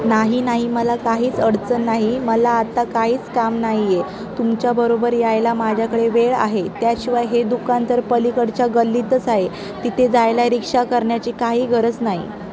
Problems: constant background noise, background conversations at intervals